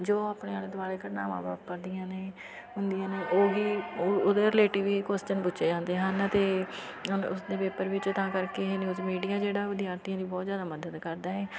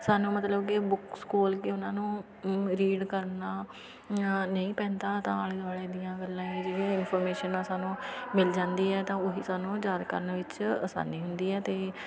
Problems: background sounds at intervals, continuous background conversations